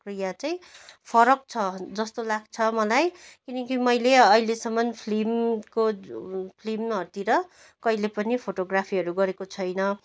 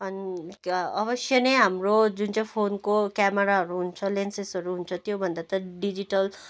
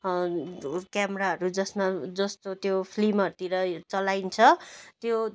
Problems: none marked